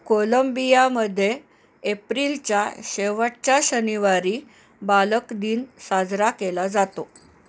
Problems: background sounds at intervals